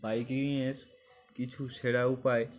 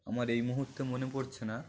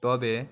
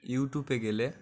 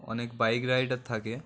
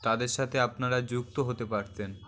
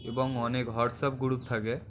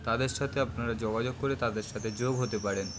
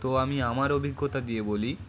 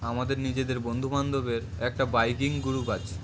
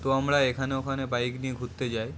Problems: constant background noise, continuous background conversations